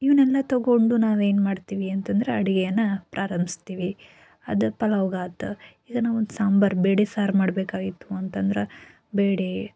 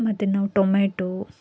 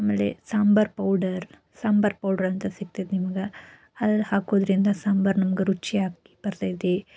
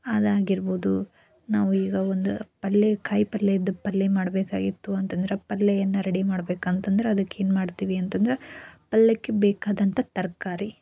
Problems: none marked